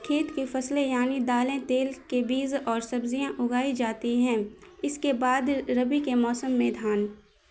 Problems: constant background noise